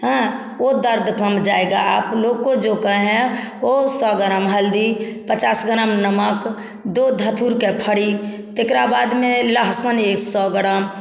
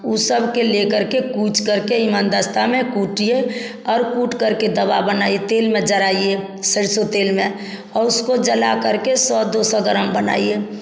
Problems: none marked